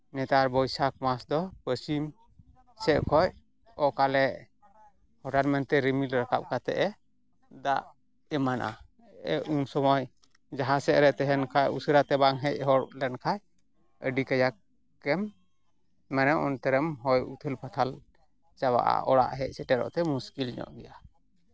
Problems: background sounds at intervals